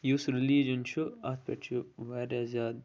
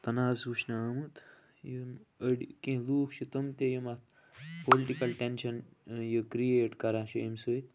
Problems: low volume